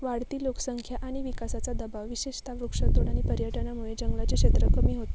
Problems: constant background noise